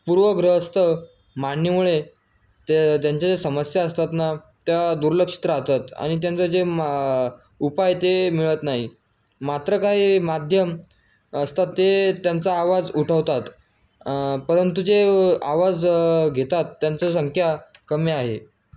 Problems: constant background noise